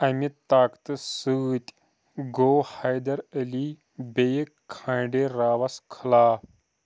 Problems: background sounds at intervals